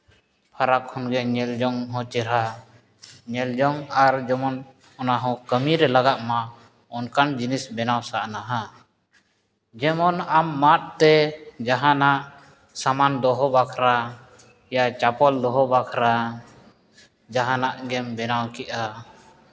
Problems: background conversations at intervals